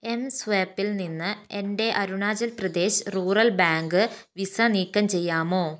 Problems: none marked